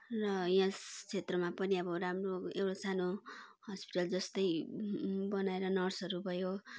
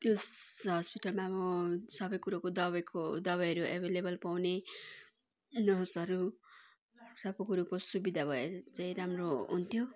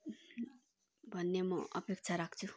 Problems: constant background noise, continuous background conversations